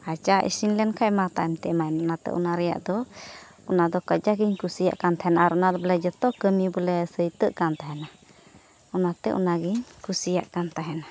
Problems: none marked